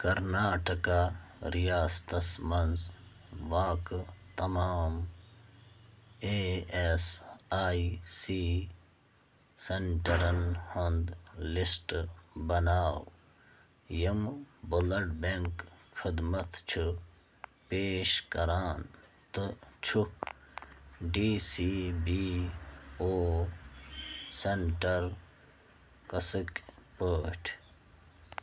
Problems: none marked